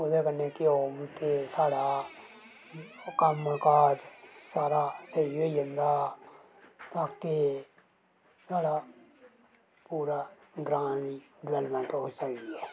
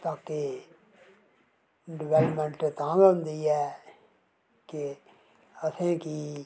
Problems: none marked